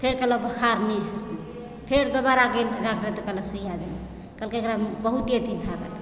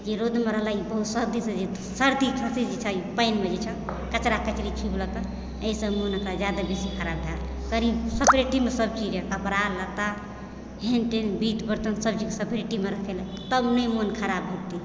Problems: constant background noise, background conversations at intervals